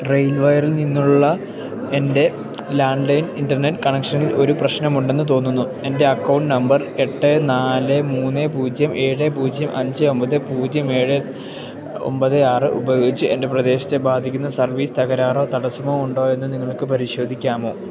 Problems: background sounds at intervals